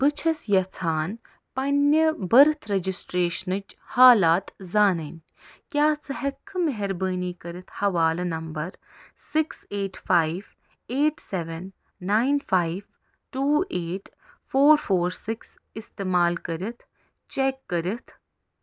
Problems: none marked